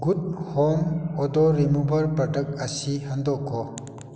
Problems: constant background noise